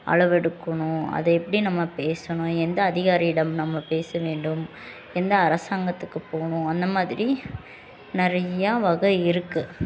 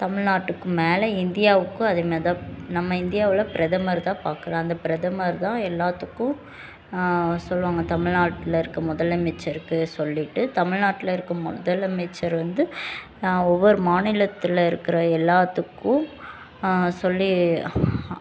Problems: constant background noise, continuous background conversations